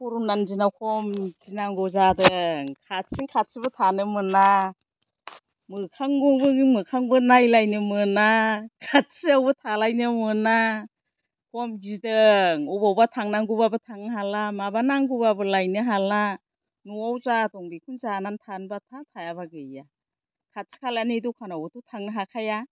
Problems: low volume